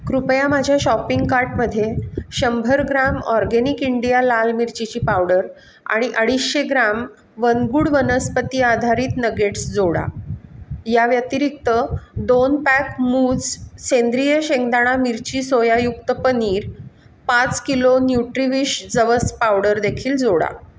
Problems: constant background noise